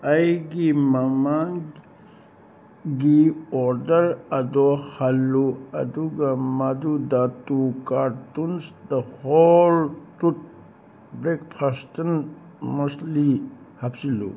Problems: constant background noise